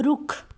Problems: none marked